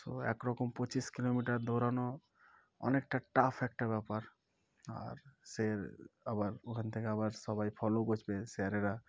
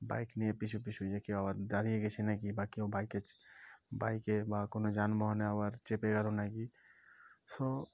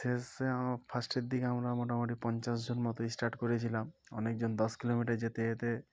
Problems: background sounds at intervals, background conversations at intervals